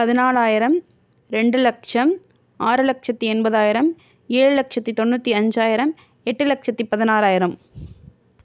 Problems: none marked